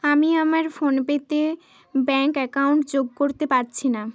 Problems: constant background noise